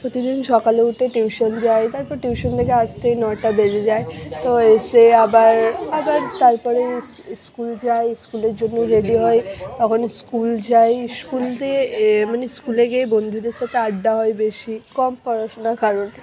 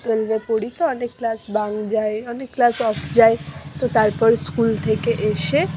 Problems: background sounds at intervals, continuous background conversations